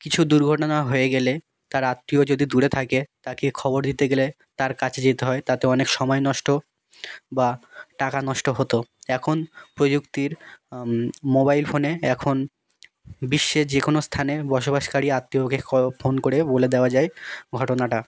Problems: background sounds at intervals, background conversations at intervals